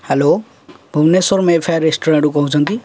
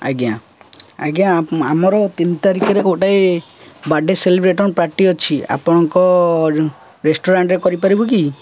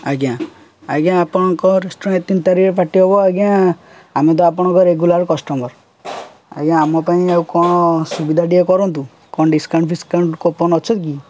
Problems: none marked